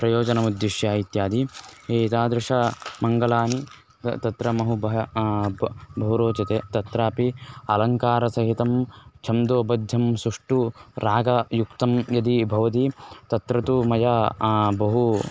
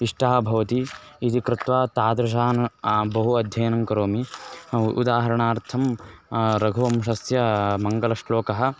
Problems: constant background noise